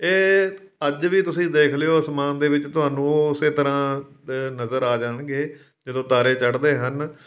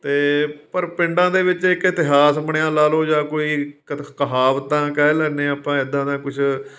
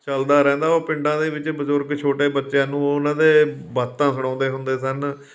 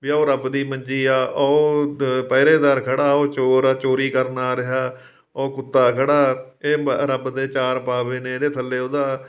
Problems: background sounds at intervals